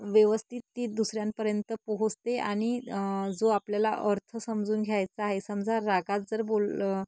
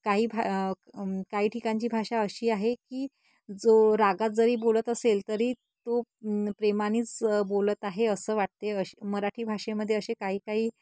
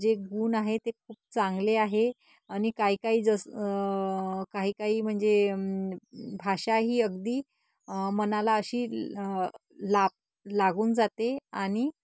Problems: constant background noise